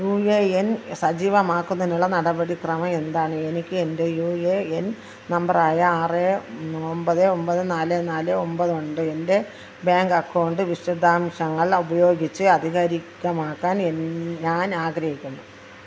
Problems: none marked